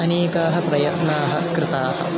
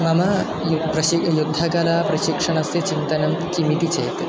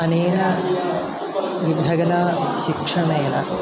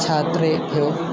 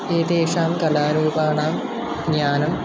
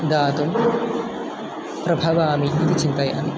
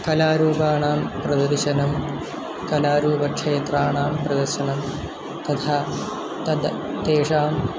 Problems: constant background noise